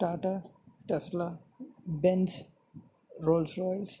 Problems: background sounds at intervals, low volume